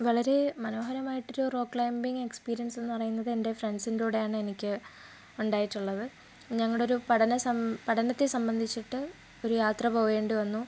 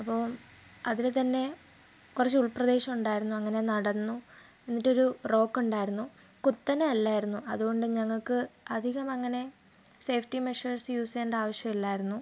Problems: low volume